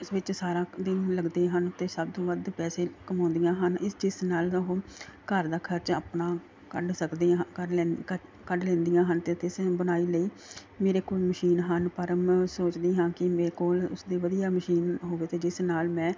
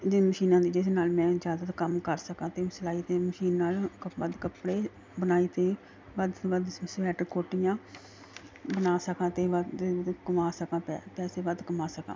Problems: none marked